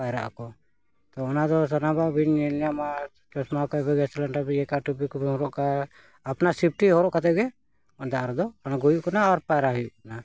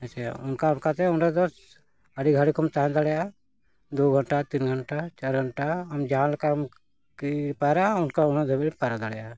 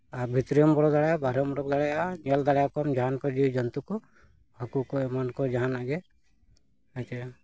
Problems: none marked